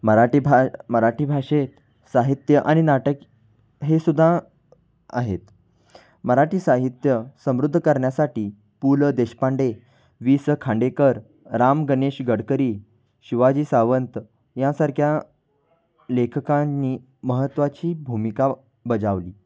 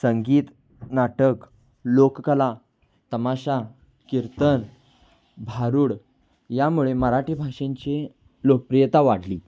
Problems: constant background noise, background conversations at intervals